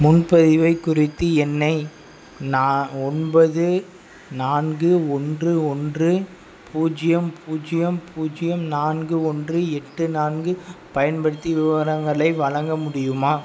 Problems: none marked